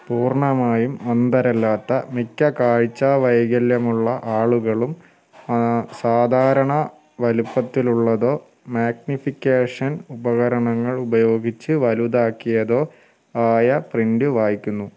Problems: background sounds at intervals